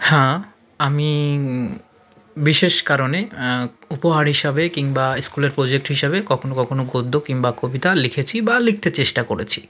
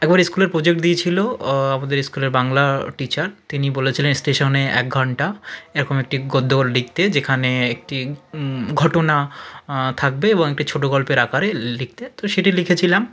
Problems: none marked